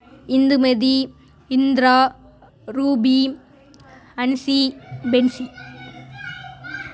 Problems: continuous background conversations